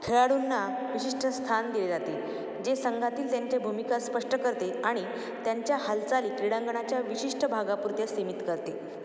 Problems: none marked